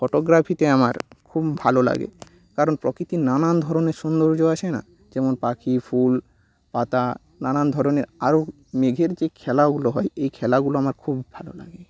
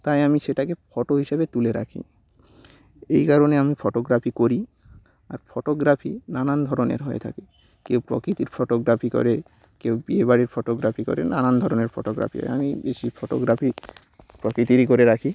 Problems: background sounds at intervals